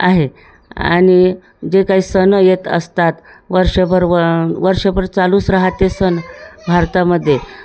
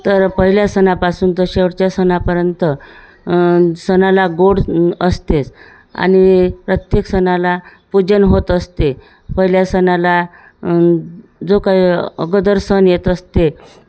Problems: constant background noise, continuous background conversations